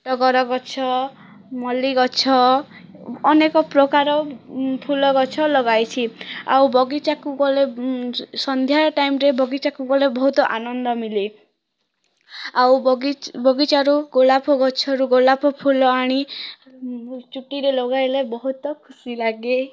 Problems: background sounds at intervals, background conversations at intervals